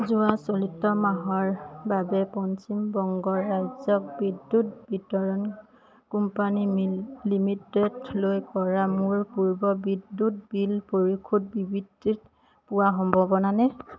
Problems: background conversations at intervals